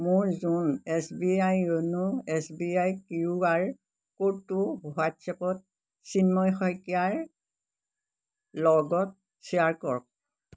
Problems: background sounds at intervals